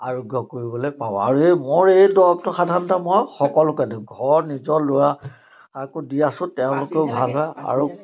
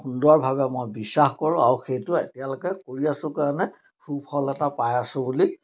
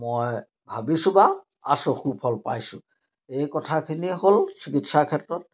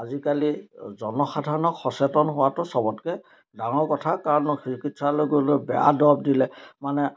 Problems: none marked